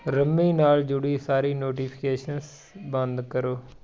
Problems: background conversations at intervals